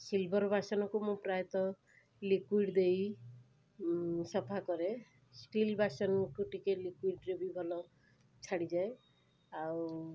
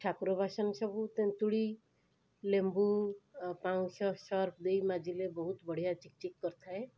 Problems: constant background noise